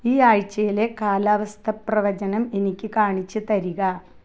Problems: low volume